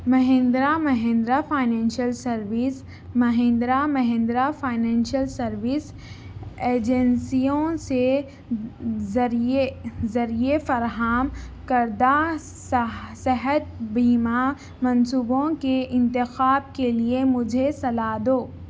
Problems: constant background noise